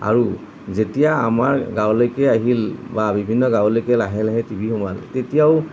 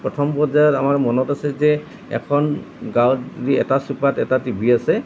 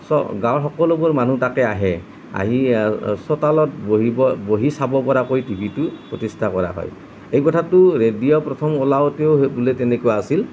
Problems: none marked